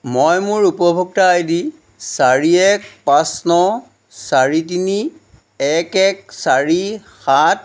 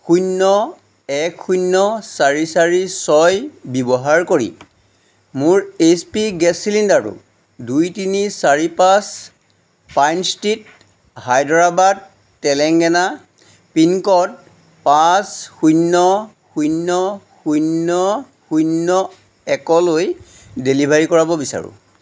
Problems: background sounds at intervals